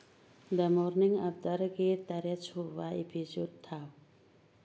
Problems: low volume